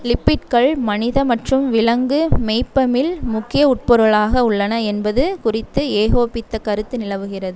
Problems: constant background noise